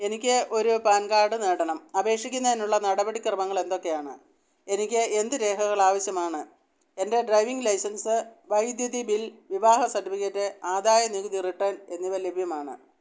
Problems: none marked